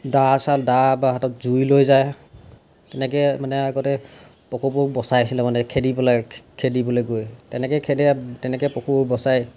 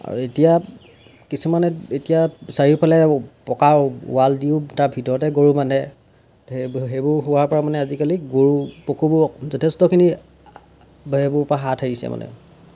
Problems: background sounds at intervals